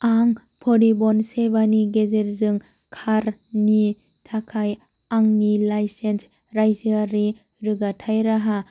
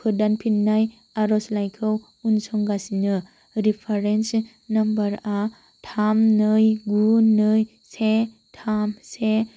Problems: constant background noise